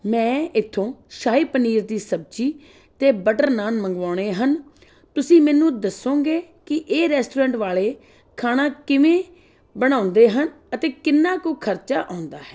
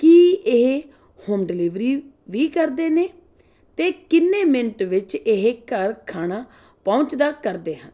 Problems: background sounds at intervals